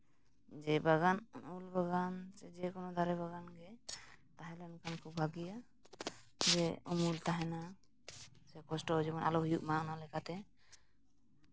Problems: background sounds at intervals